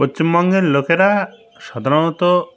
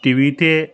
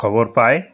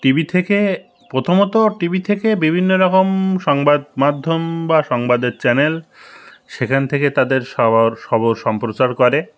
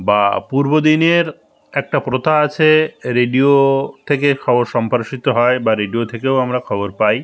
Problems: constant background noise, continuous background conversations